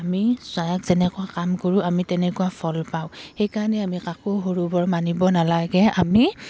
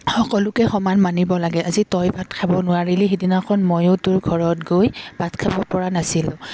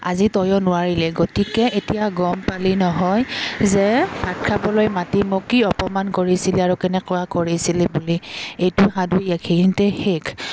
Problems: background sounds at intervals